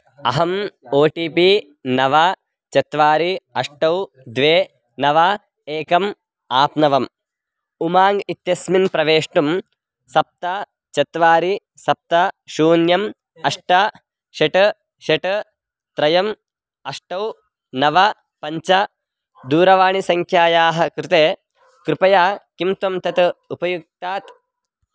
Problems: background sounds at intervals